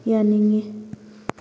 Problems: none marked